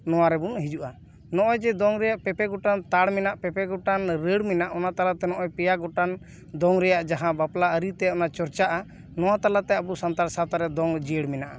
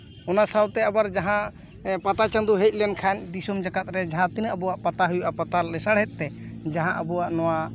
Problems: none marked